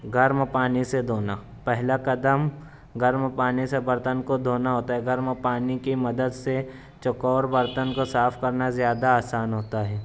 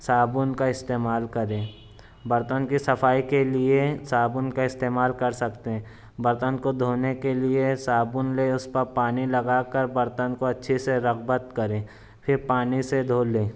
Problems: none marked